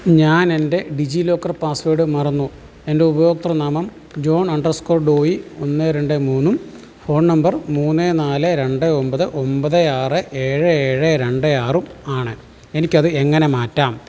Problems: background sounds at intervals